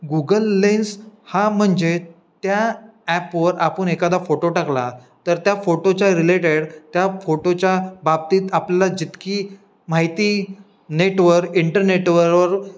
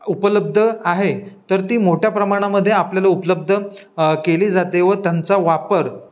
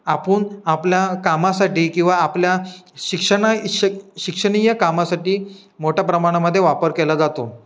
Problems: background sounds at intervals